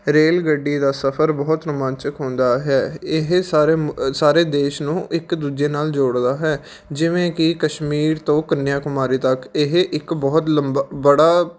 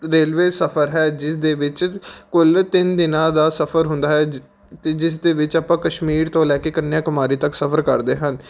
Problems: background sounds at intervals